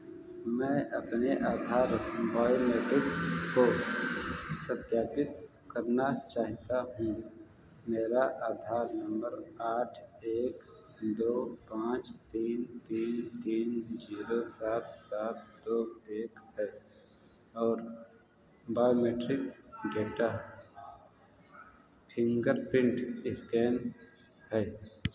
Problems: background sounds at intervals